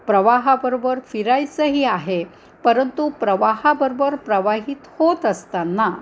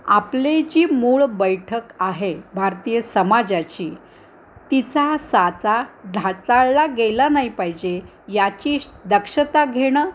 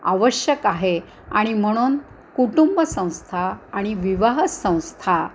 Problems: constant background noise